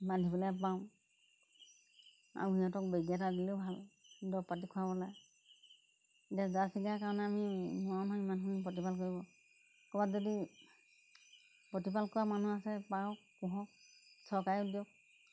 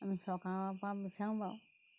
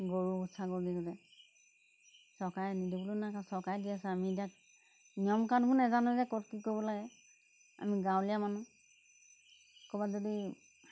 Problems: background sounds at intervals